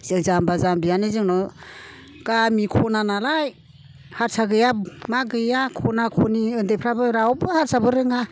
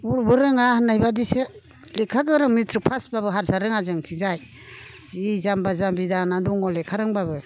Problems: none marked